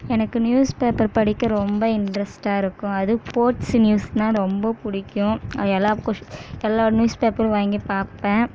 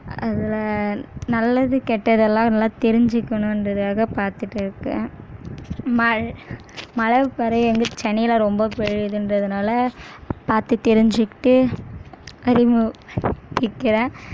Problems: constant background noise